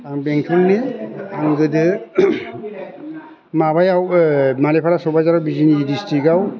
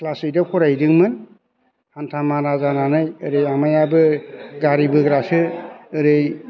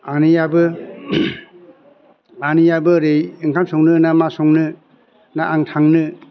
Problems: constant background noise